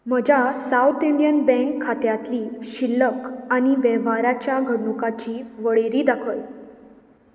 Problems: none marked